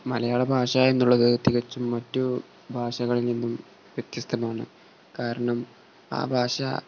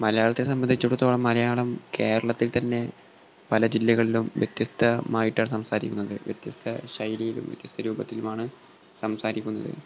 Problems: none marked